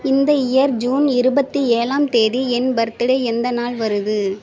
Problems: constant background noise